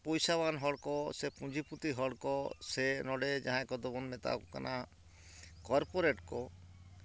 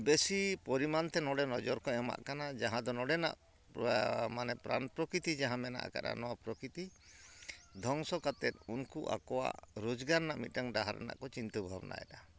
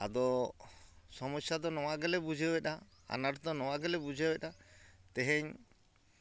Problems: background sounds at intervals